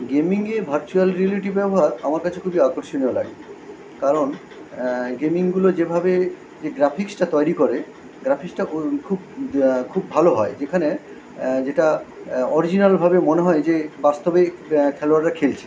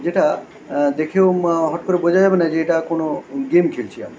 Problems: constant background noise